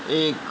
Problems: constant background noise